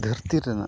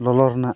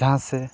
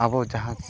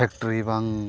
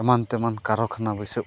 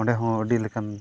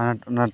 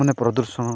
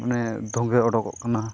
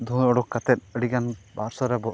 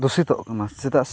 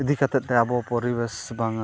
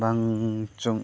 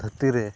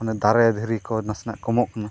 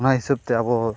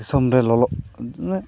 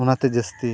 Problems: background sounds at intervals